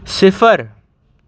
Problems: background sounds at intervals